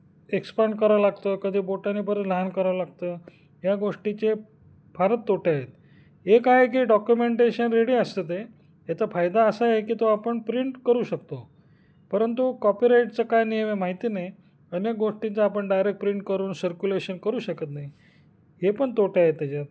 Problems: none marked